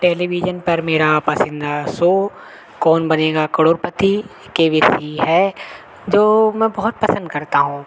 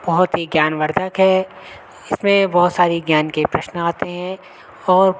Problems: constant background noise